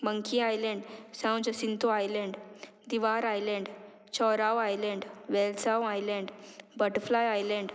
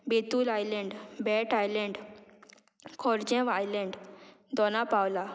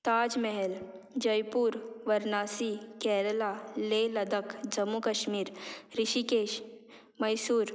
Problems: none marked